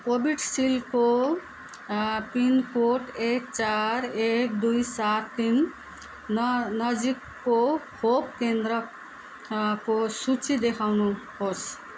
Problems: background sounds at intervals